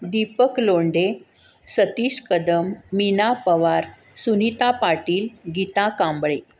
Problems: constant background noise